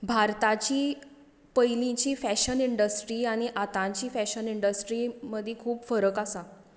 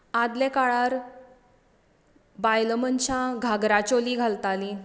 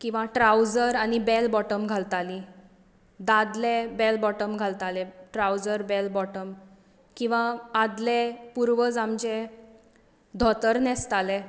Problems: constant background noise